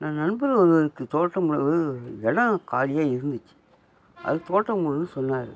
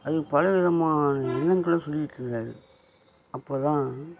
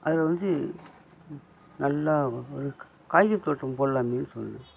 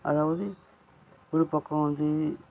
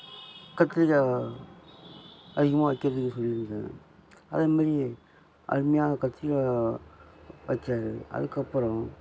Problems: constant background noise